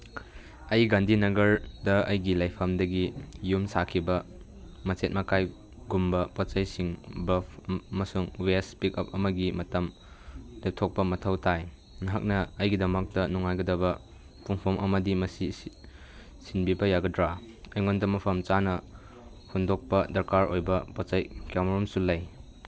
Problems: none marked